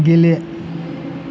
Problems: constant background noise